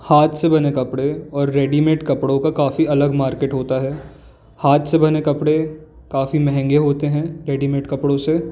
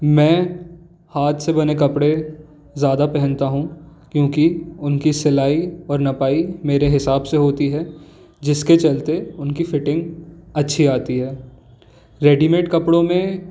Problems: background sounds at intervals